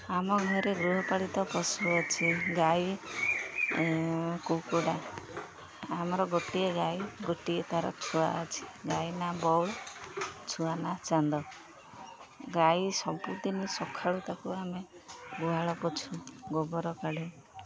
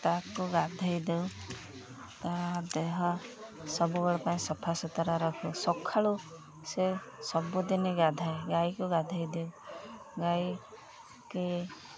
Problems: constant background noise